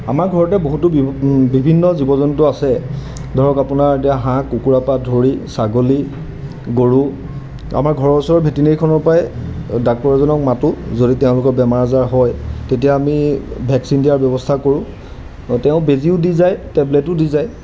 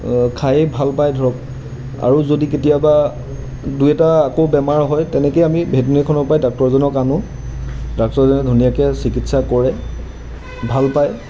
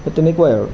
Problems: constant background noise